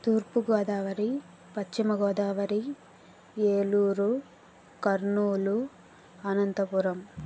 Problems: constant background noise